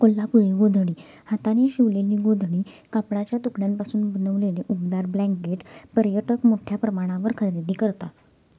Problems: constant background noise, background conversations at intervals